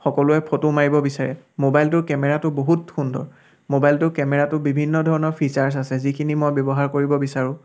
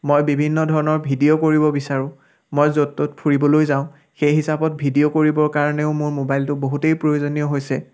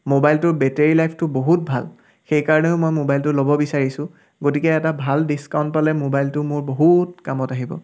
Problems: background sounds at intervals, background conversations at intervals